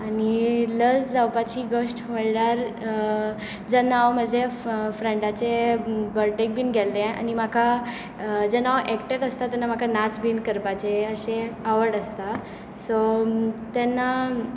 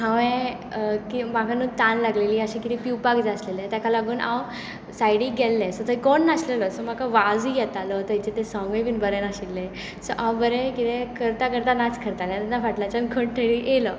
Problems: constant background noise